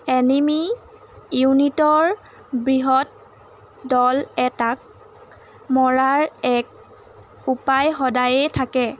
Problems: constant background noise